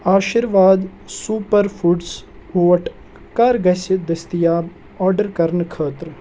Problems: background sounds at intervals